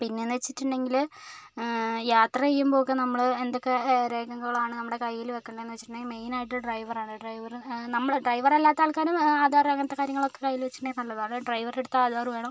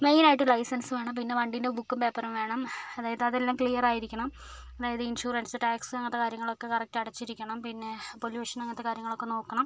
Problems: background sounds at intervals, low volume